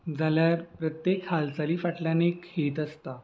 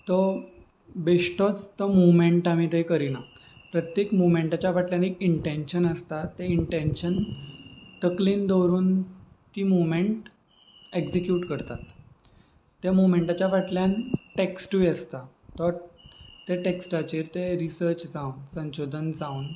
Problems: constant background noise